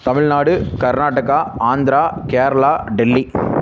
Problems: constant background noise